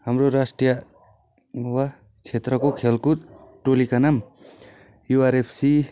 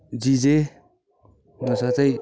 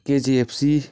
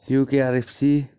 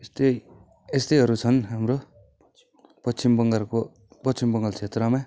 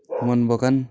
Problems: constant background noise